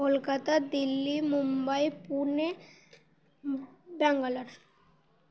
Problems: constant background noise